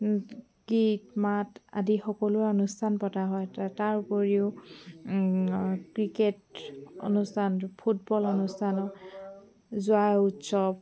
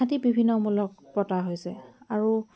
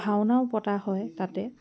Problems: constant background noise